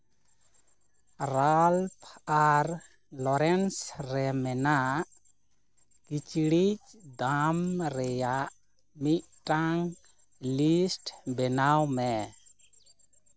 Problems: none marked